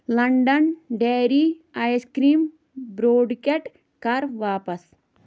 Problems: background sounds at intervals